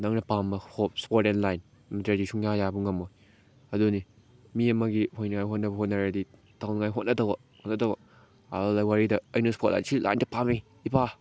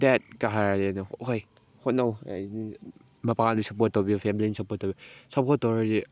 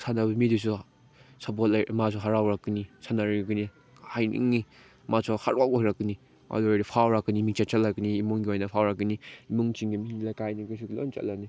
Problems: background sounds at intervals